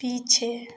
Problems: background sounds at intervals